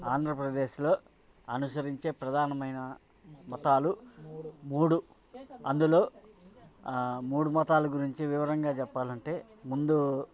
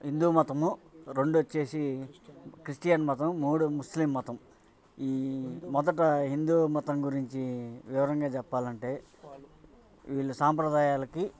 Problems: background sounds at intervals